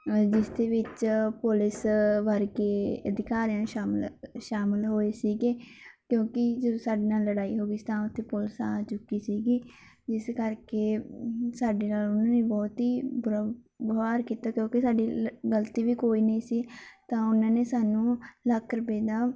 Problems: background sounds at intervals